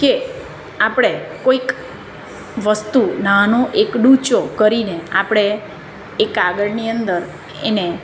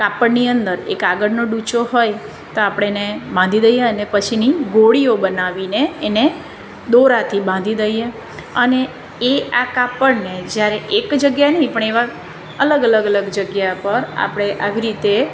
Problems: none marked